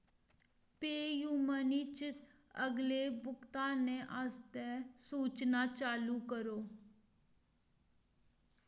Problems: none marked